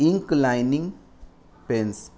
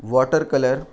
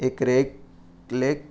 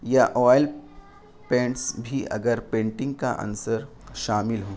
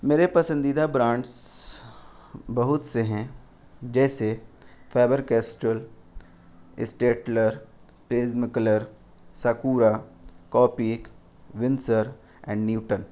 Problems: constant background noise